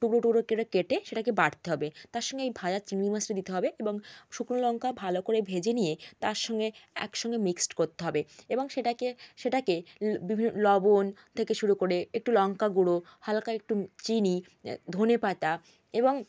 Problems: constant background noise